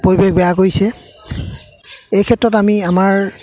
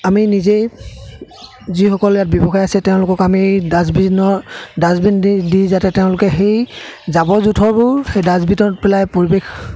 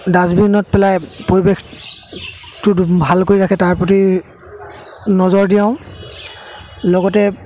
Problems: constant background noise, background conversations at intervals